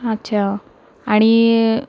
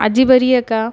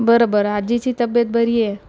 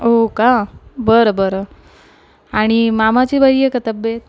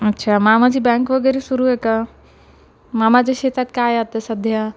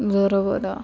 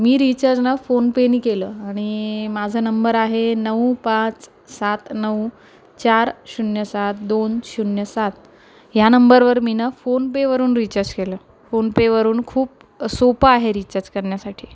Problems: none marked